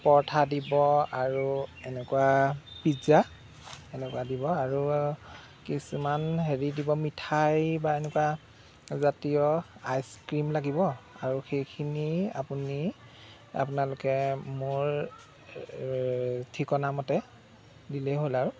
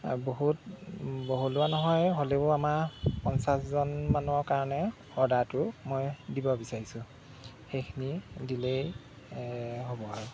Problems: background sounds at intervals